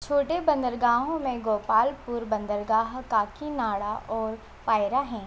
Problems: constant background noise